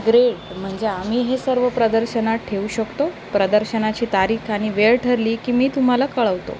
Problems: constant background noise